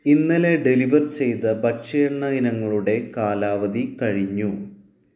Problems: none marked